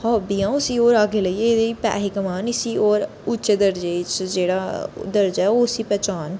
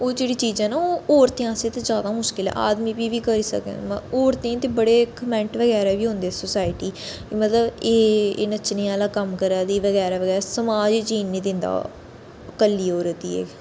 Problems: constant background noise